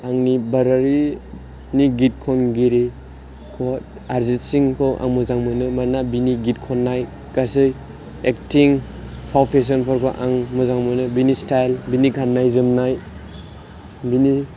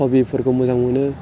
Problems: constant background noise